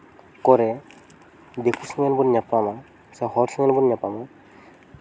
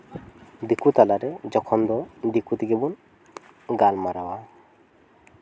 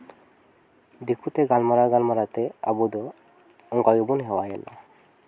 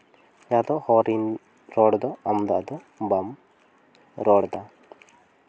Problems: background sounds at intervals